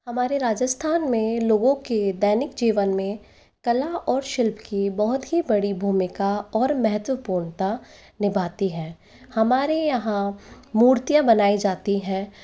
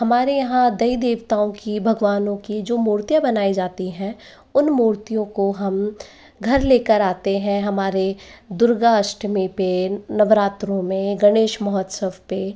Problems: background sounds at intervals, echo